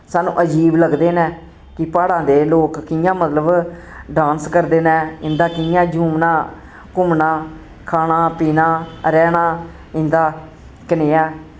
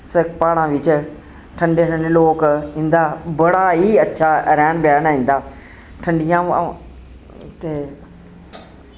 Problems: constant background noise